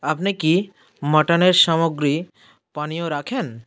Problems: background sounds at intervals